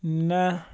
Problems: constant background noise